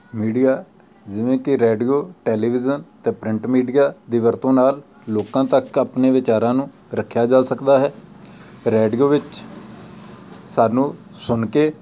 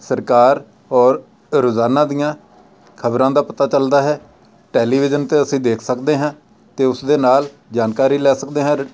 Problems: constant background noise